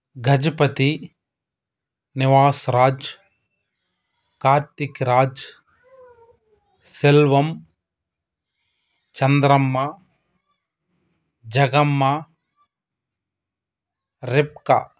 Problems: background sounds at intervals